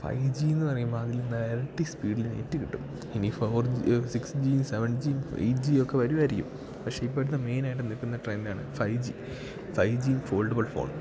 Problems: background sounds at intervals